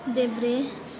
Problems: constant background noise, continuous background conversations